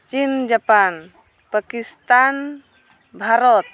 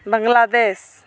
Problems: background conversations at intervals